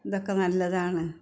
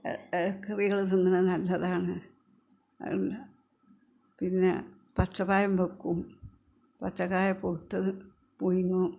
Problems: background conversations at intervals, low volume